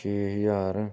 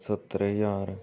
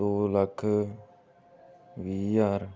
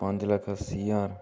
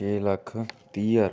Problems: background sounds at intervals